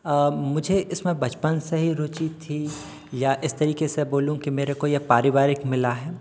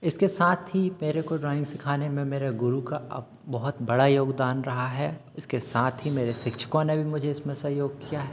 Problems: constant background noise